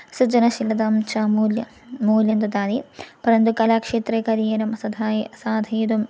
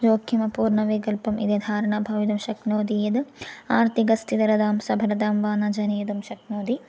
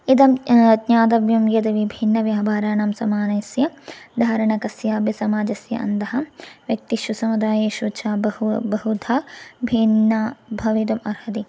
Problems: none marked